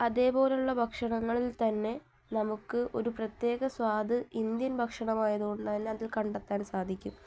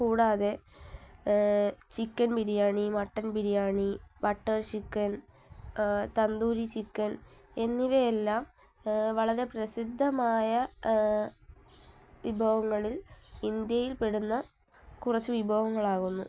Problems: none marked